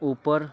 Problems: continuous background conversations